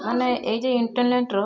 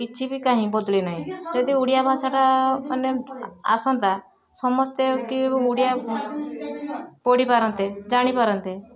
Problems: constant background noise, continuous background conversations